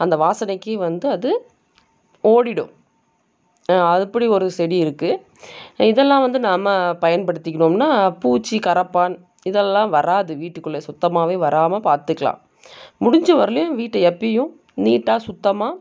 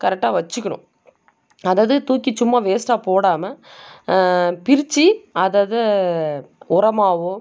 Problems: none marked